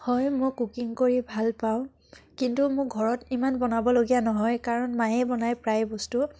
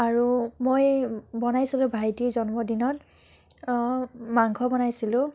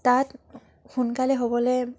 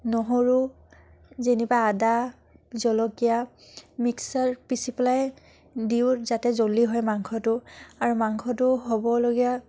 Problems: none marked